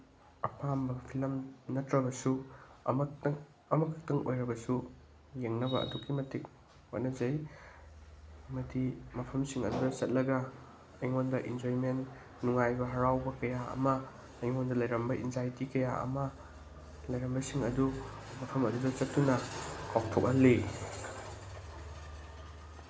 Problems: background sounds at intervals